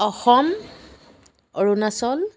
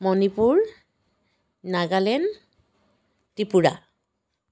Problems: background sounds at intervals